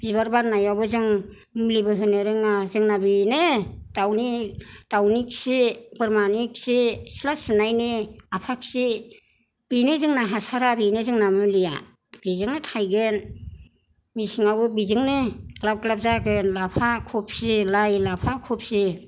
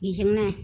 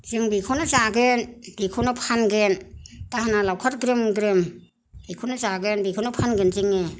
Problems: none marked